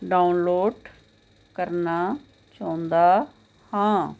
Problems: constant background noise